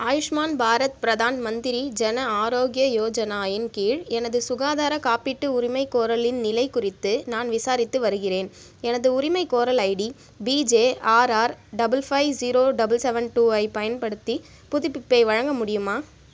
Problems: none marked